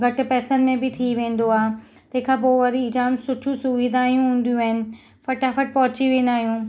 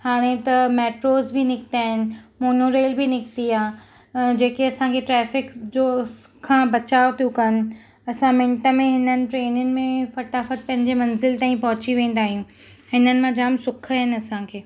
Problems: none marked